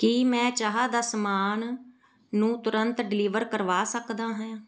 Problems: background sounds at intervals